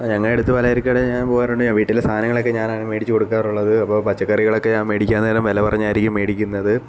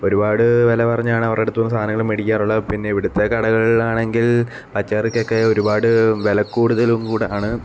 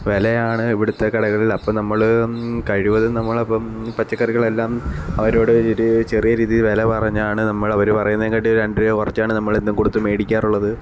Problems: none marked